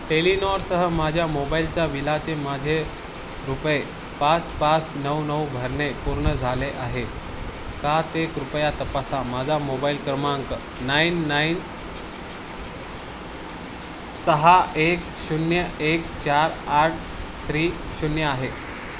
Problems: constant background noise